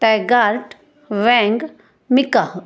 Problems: none marked